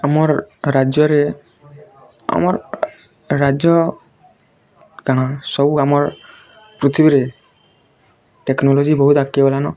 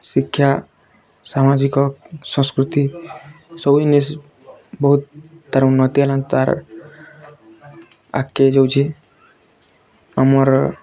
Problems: constant background noise, continuous background conversations